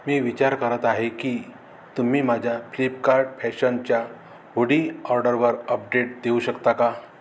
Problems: constant background noise